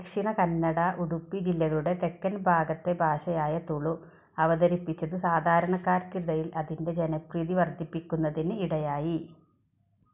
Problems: background sounds at intervals